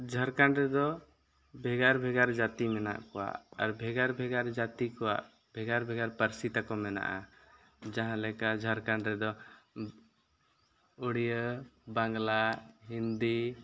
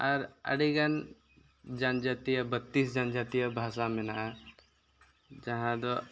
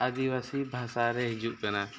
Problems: background sounds at intervals